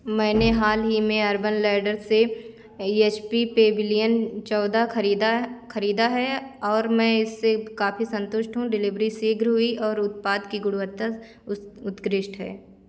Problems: constant background noise